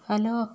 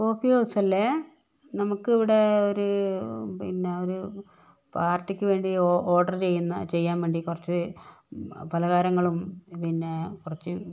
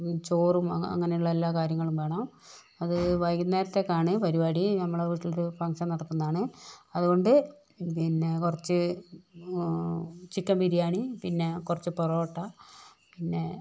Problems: none marked